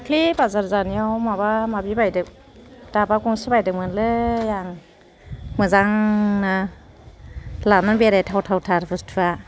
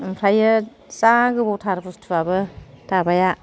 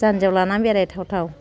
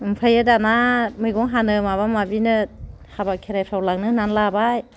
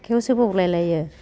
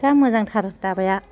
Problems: none marked